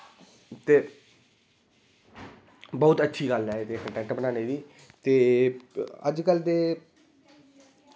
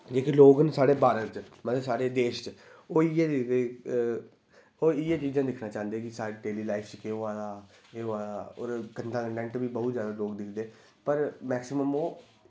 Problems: none marked